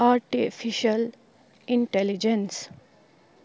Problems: none marked